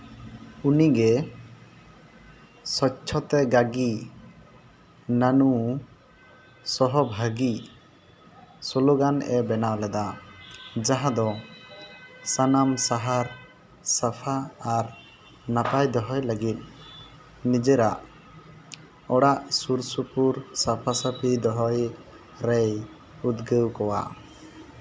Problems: none marked